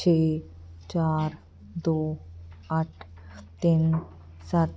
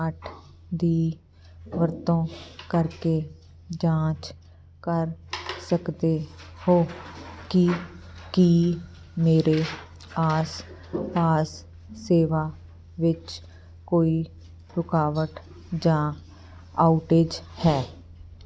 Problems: none marked